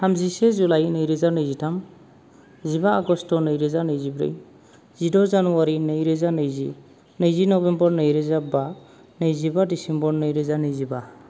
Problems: low volume